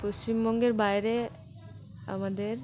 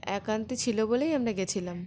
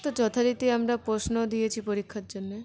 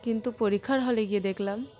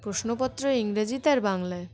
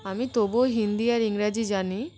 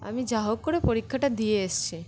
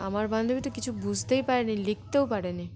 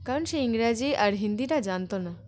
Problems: constant background noise, continuous background conversations